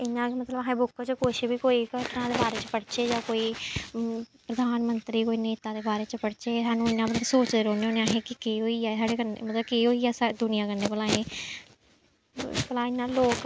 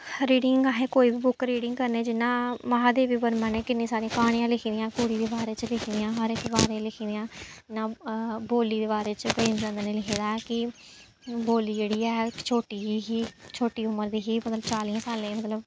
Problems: background sounds at intervals